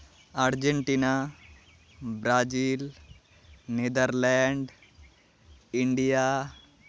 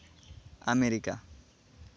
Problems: none marked